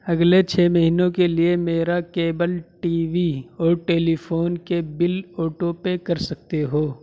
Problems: none marked